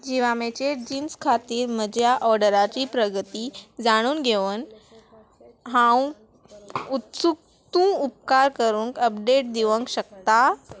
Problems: none marked